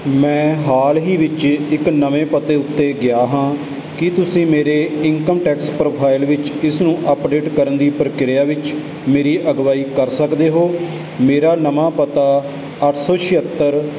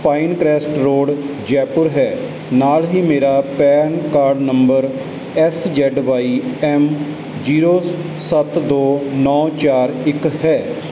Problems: none marked